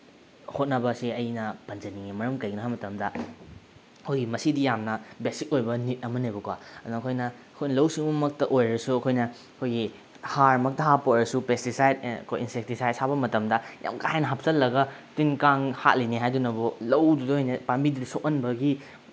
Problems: none marked